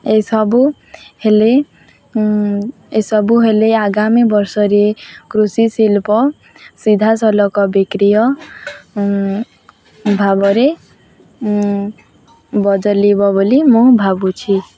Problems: constant background noise, continuous background conversations